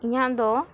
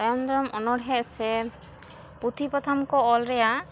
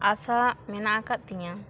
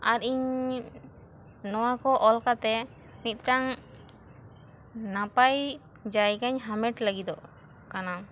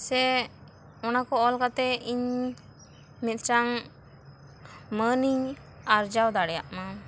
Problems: constant background noise